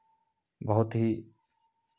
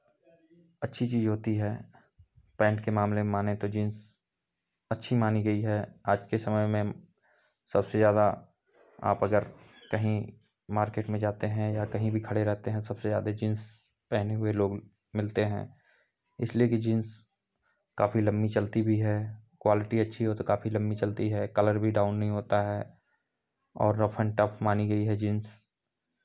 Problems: none marked